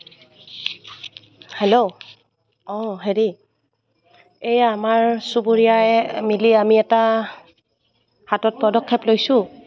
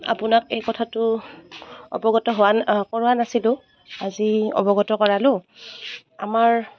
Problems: none marked